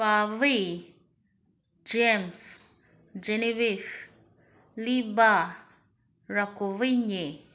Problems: none marked